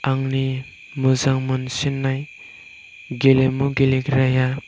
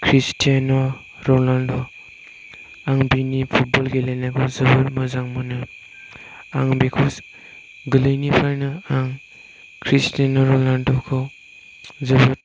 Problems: none marked